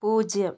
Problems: none marked